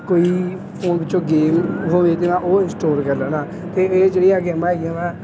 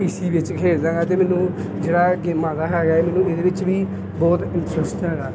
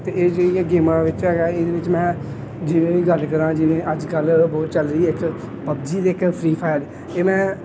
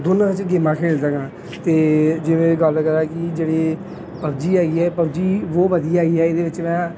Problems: background sounds at intervals, background conversations at intervals